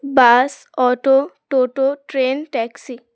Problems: background sounds at intervals